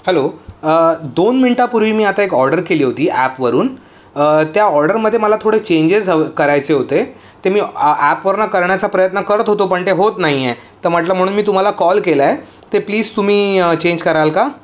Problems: none marked